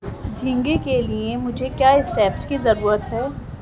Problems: background sounds at intervals